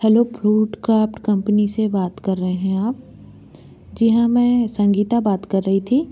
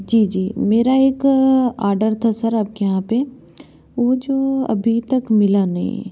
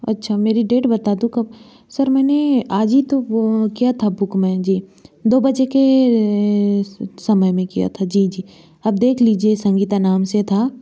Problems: constant background noise